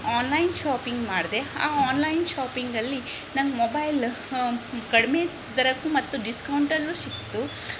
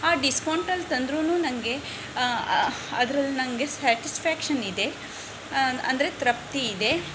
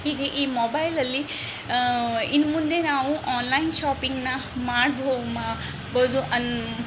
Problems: background sounds at intervals